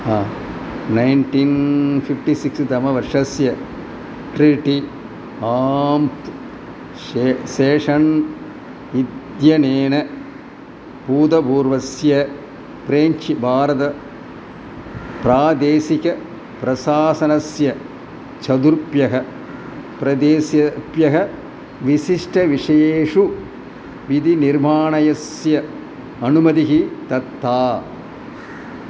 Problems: background sounds at intervals